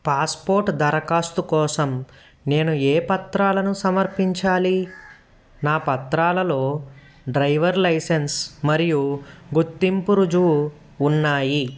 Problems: background sounds at intervals